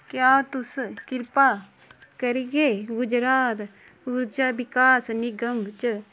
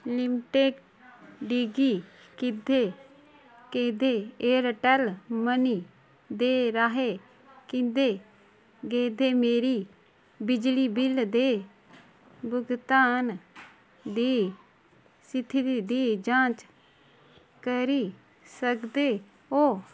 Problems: constant background noise